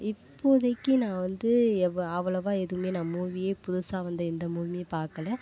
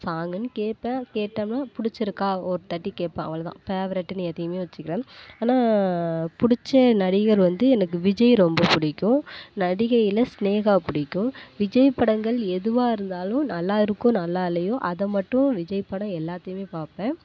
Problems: none marked